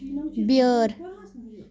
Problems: background conversations at intervals